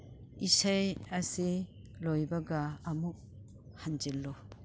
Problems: none marked